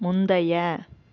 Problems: none marked